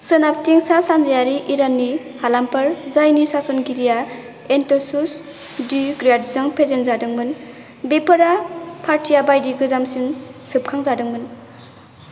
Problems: constant background noise